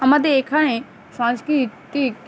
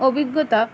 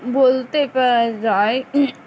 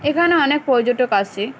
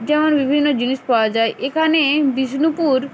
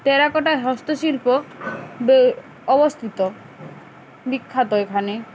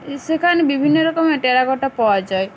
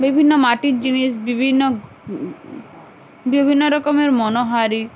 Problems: none marked